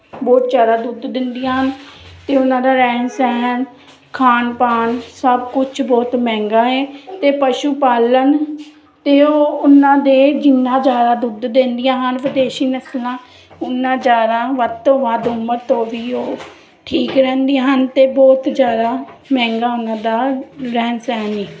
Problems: constant background noise